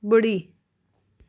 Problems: none marked